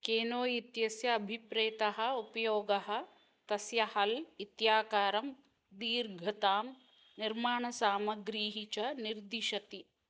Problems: none marked